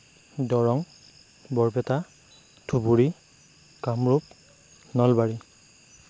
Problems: constant background noise